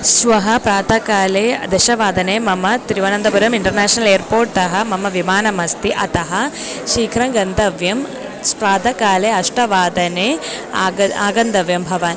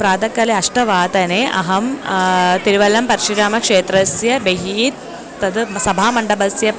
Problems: background conversations at intervals